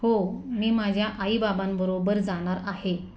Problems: background sounds at intervals